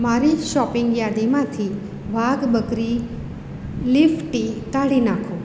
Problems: none marked